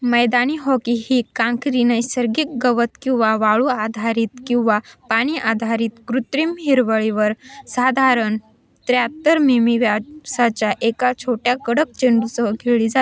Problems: constant background noise, continuous background conversations, echo